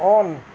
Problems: constant background noise